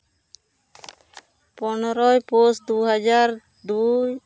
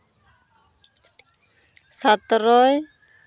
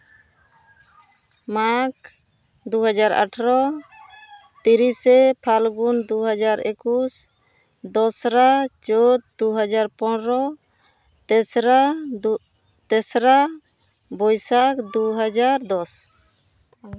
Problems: background sounds at intervals